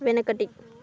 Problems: continuous background conversations